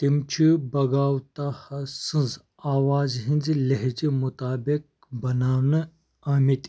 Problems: none marked